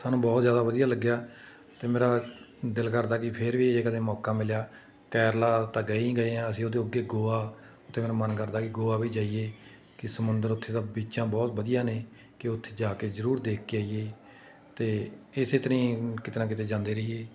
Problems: none marked